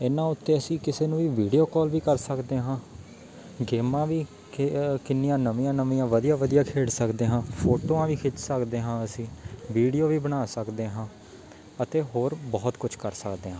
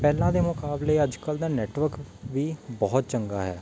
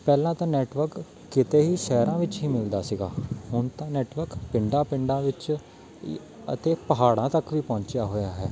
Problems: background sounds at intervals, background conversations at intervals